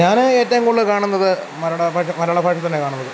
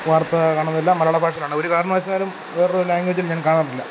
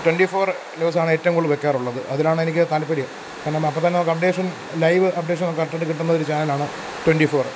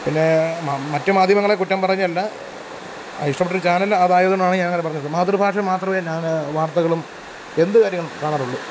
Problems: constant background noise